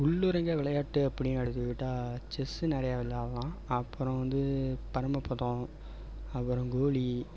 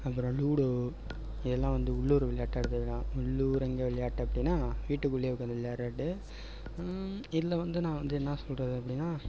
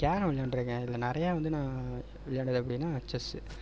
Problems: background sounds at intervals